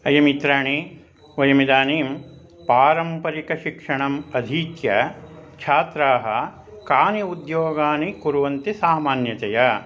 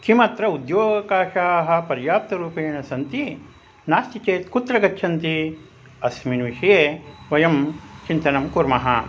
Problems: constant background noise, continuous background conversations